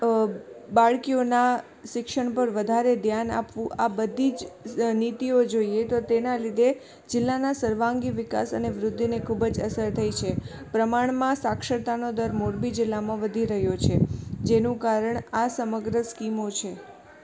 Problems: constant background noise, background conversations at intervals